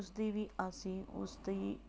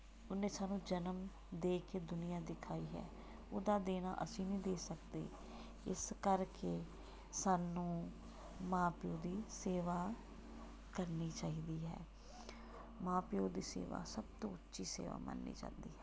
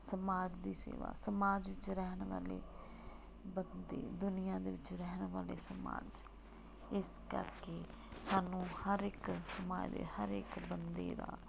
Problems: background sounds at intervals